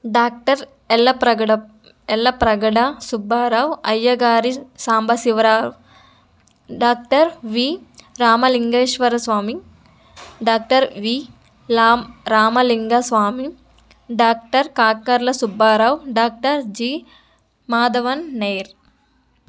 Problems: none marked